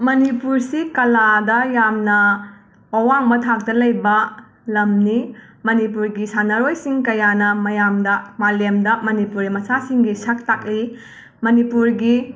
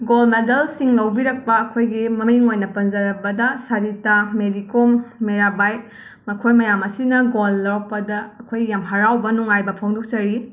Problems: background sounds at intervals